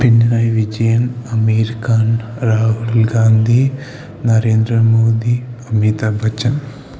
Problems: constant background noise